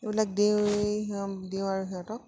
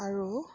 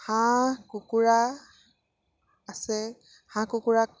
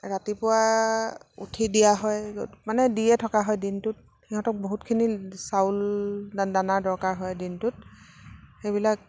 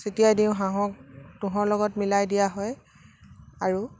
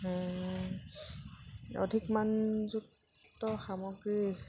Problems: none marked